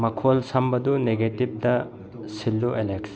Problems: low volume